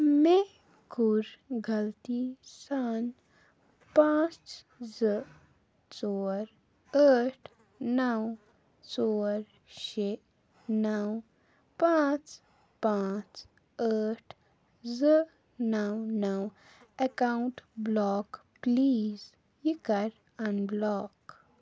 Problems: background sounds at intervals